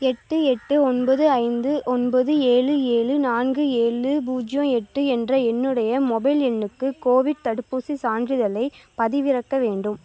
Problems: none marked